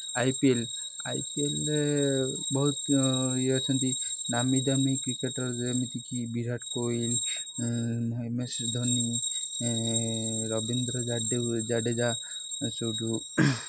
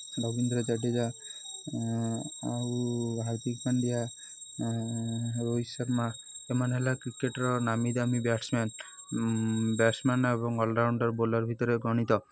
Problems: constant background noise